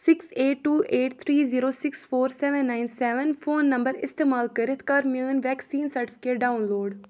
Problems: none marked